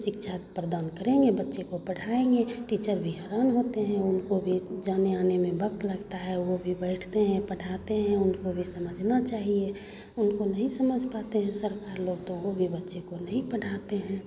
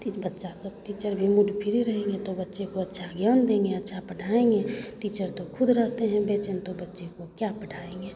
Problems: constant background noise, continuous background conversations